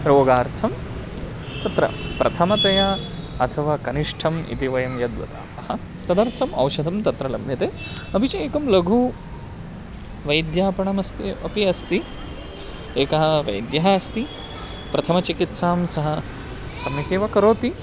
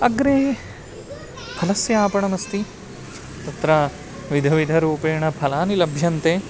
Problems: none marked